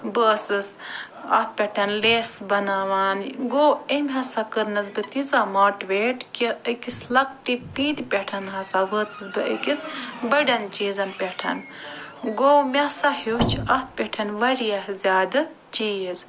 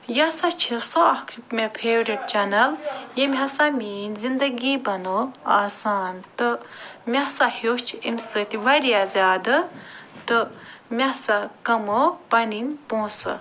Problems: background sounds at intervals